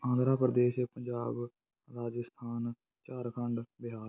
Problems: constant background noise